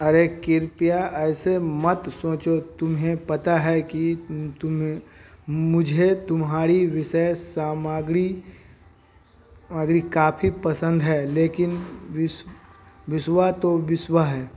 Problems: none marked